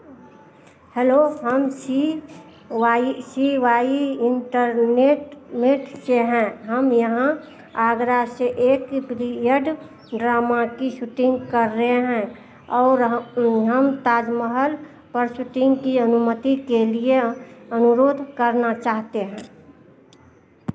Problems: constant background noise, background conversations at intervals